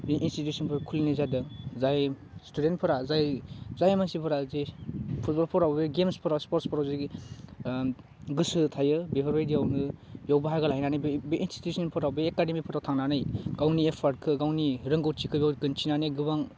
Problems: constant background noise